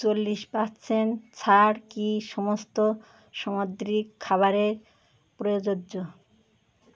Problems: background sounds at intervals